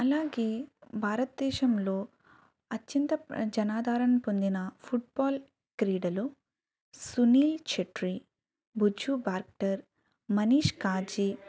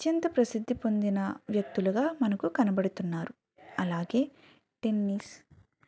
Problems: background sounds at intervals, background conversations at intervals, low volume